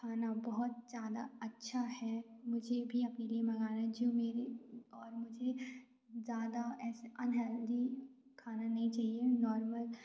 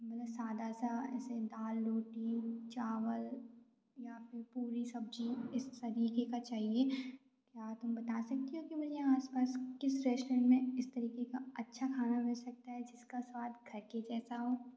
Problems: none marked